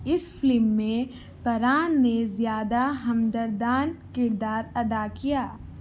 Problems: none marked